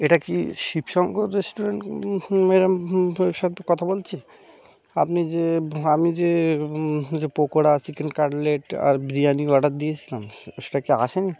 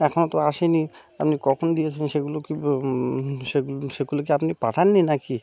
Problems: constant background noise, continuous background conversations